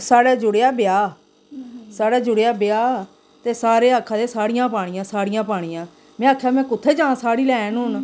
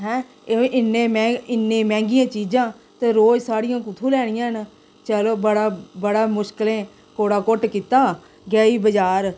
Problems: constant background noise, echo